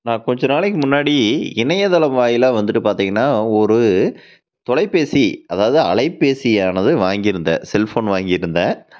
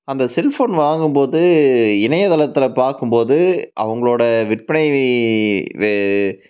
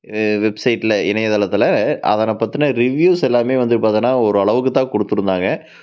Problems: constant background noise